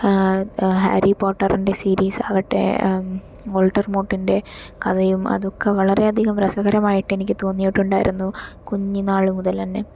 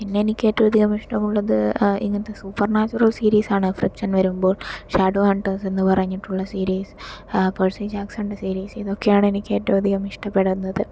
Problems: none marked